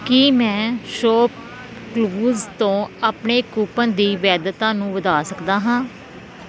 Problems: constant background noise